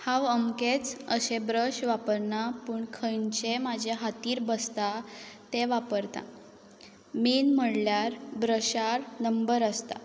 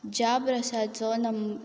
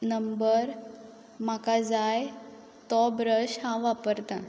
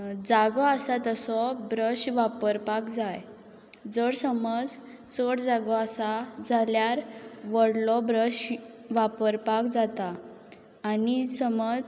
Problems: background sounds at intervals